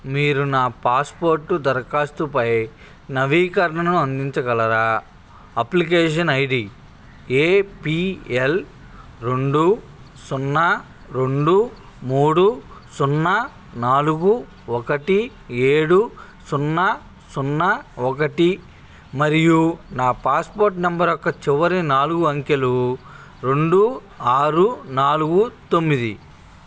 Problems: constant background noise, background conversations at intervals